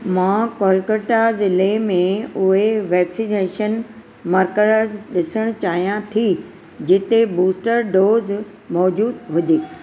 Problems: none marked